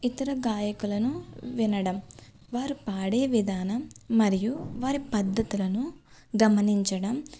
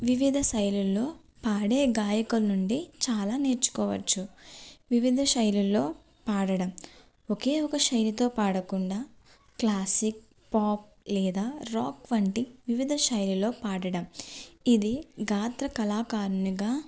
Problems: none marked